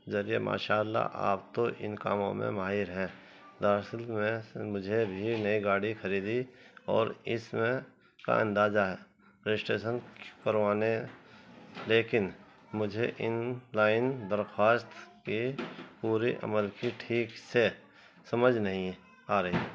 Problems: constant background noise